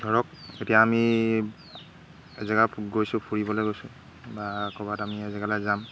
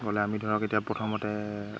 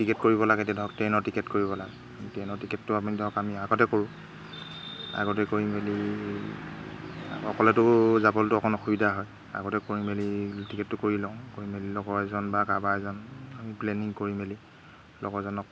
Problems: none marked